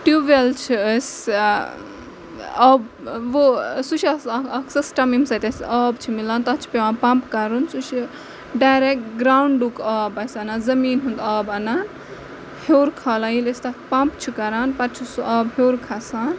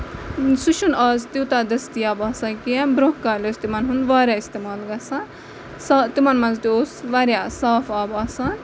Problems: background sounds at intervals, background conversations at intervals